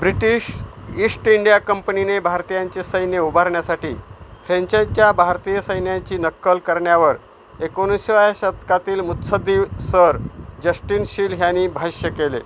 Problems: constant background noise